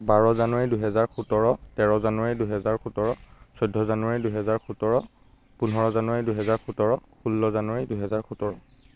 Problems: constant background noise